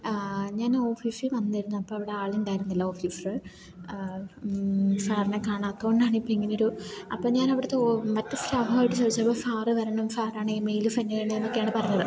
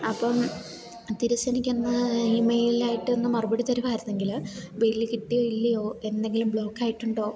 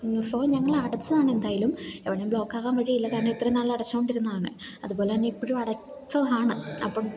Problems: background sounds at intervals